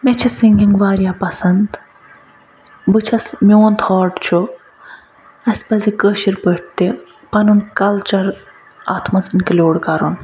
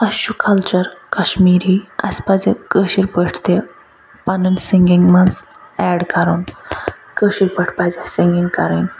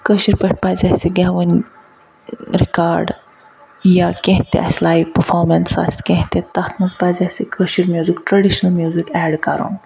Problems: none marked